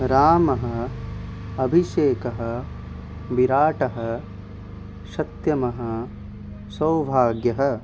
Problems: constant background noise